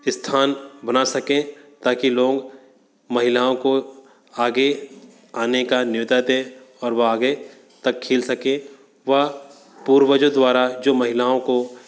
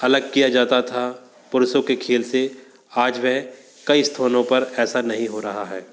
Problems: constant background noise, background conversations at intervals